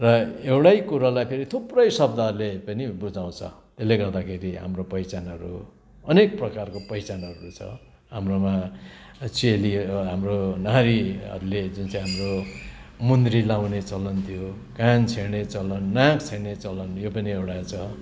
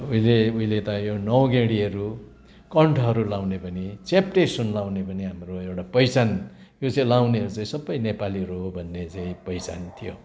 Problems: constant background noise